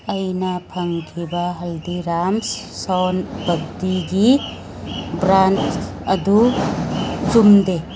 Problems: background sounds at intervals